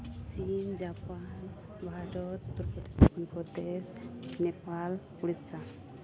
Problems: constant background noise, low volume